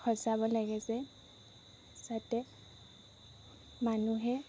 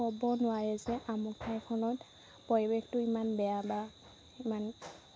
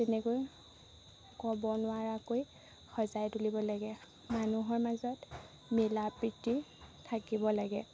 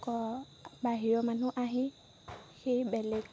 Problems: constant background noise